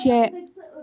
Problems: background sounds at intervals